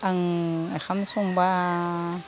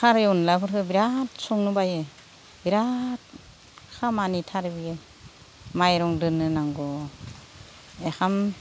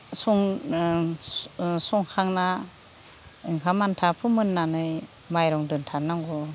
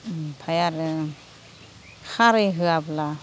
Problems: none marked